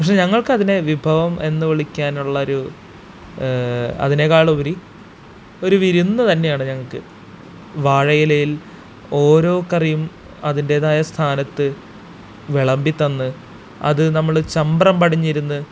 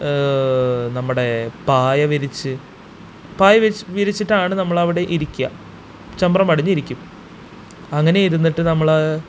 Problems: constant background noise